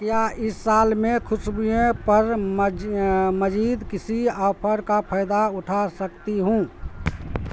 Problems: constant background noise